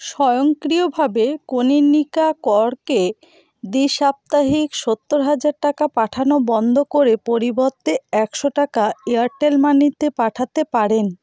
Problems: background conversations at intervals